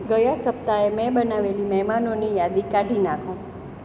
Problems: none marked